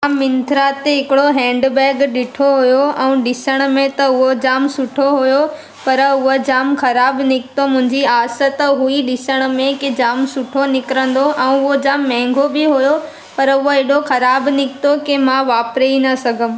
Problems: constant background noise, echo